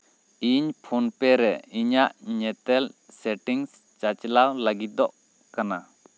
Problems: none marked